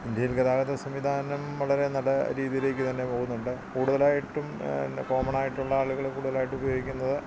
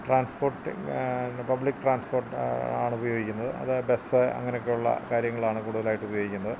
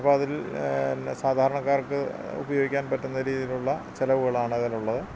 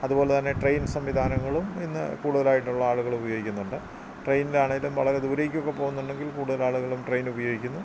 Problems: constant background noise